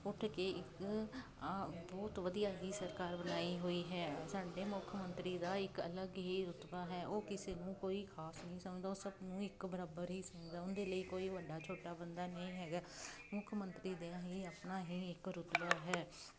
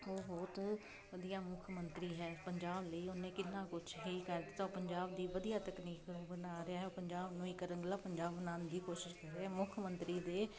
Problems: none marked